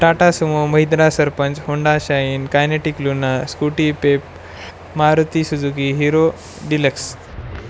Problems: none marked